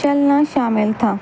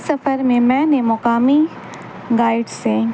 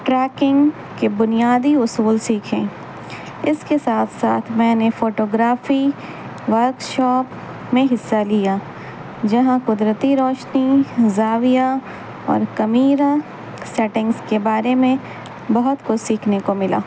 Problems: constant background noise